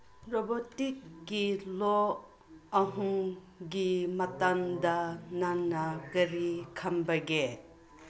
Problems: constant background noise